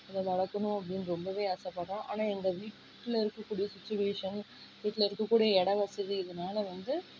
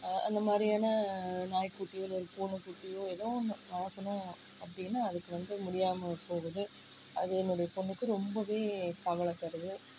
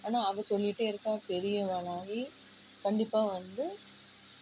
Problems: low volume